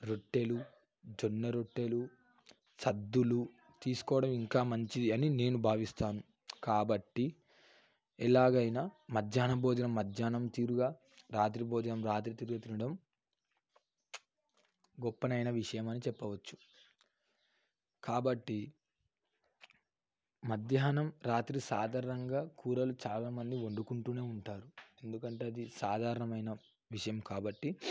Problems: none marked